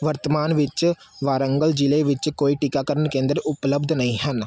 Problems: background sounds at intervals